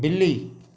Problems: background sounds at intervals